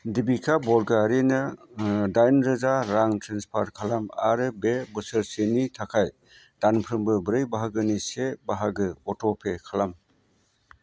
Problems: constant background noise